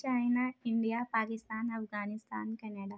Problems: low volume